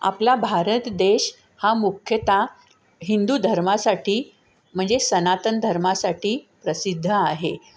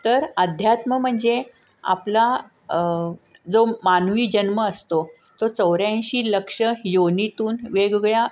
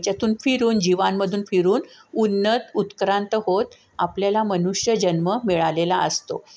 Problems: none marked